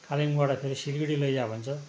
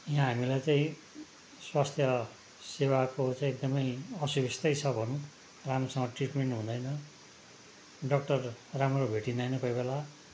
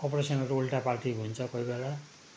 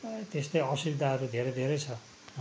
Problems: constant background noise